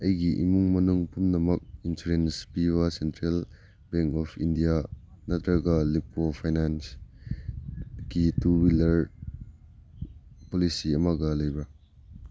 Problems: background sounds at intervals